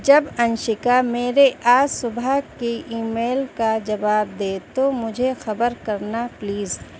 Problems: none marked